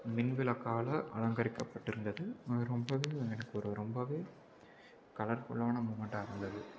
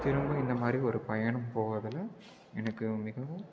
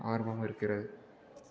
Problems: constant background noise, low volume